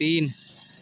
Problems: constant background noise